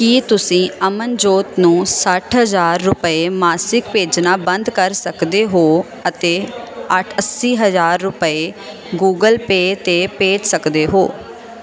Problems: constant background noise